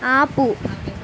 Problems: constant background noise